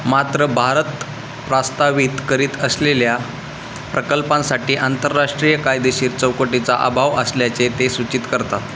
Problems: constant background noise